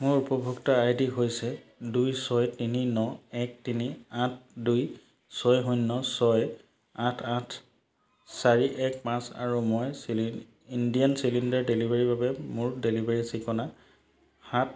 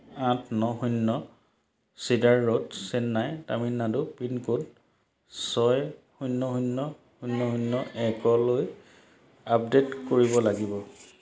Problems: none marked